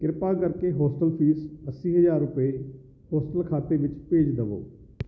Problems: none marked